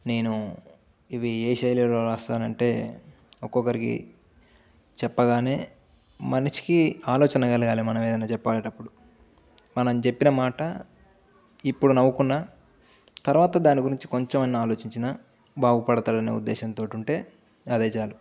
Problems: none marked